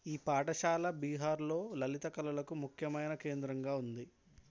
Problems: none marked